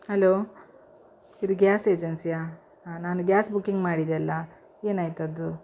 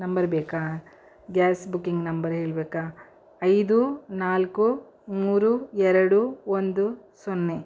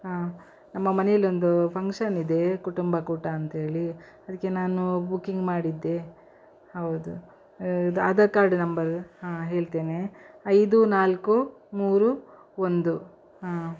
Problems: none marked